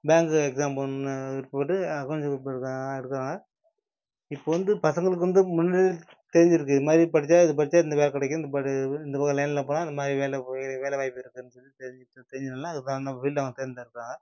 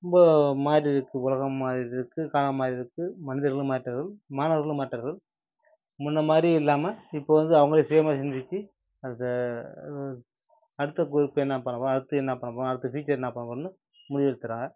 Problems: none marked